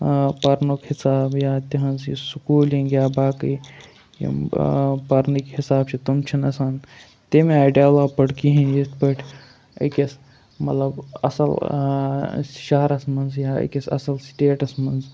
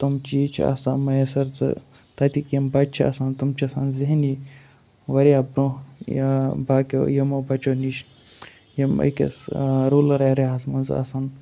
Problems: none marked